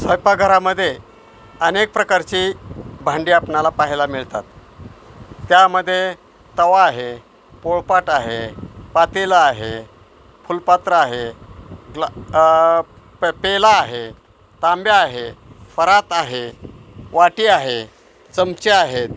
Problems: constant background noise, background conversations at intervals